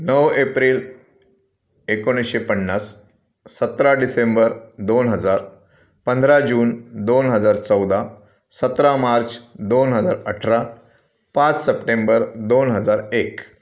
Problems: background sounds at intervals, background conversations at intervals